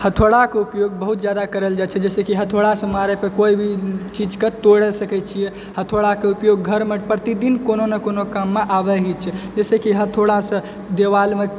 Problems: background sounds at intervals